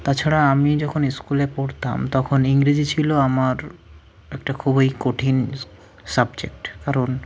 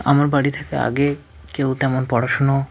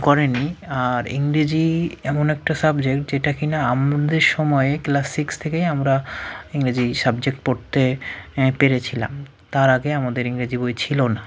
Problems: background sounds at intervals